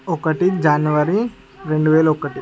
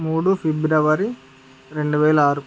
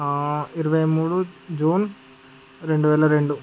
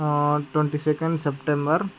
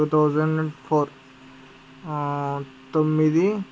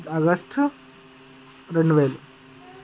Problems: background conversations at intervals